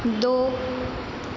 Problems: constant background noise, echo